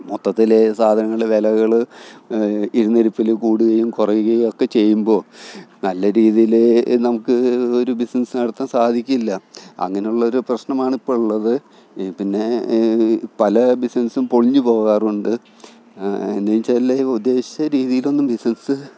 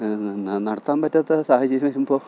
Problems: background sounds at intervals